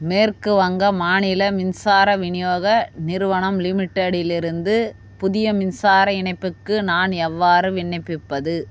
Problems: background sounds at intervals